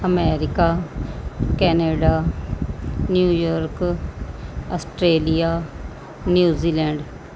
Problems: background sounds at intervals